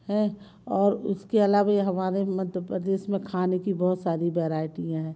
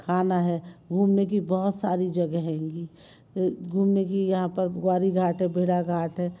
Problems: none marked